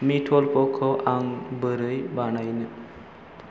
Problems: constant background noise